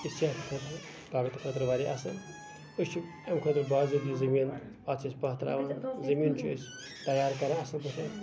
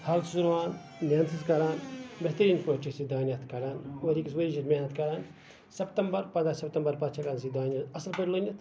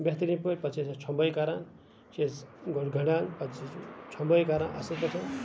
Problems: constant background noise, background conversations at intervals